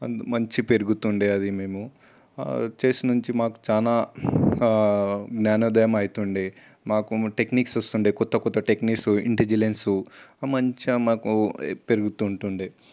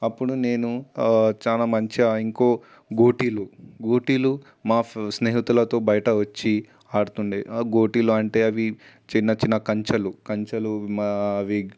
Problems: constant background noise